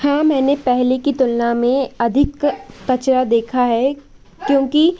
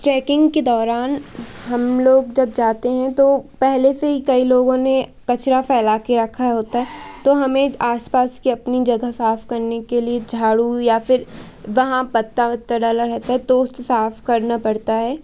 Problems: none marked